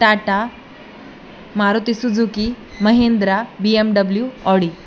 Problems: none marked